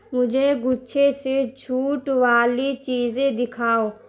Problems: constant background noise